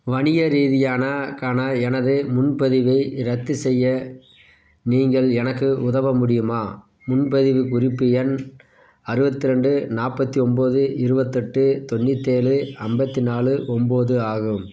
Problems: background sounds at intervals